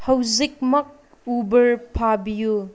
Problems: none marked